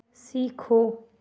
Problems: constant background noise